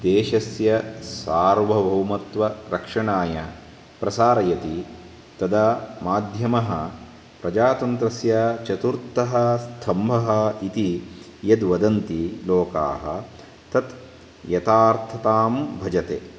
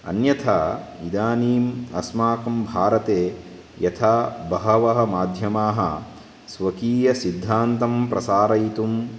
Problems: constant background noise